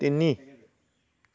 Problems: background sounds at intervals